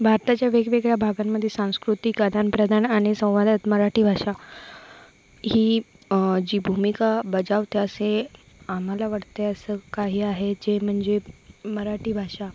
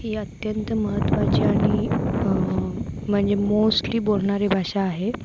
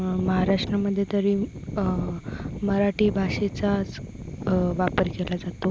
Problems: constant background noise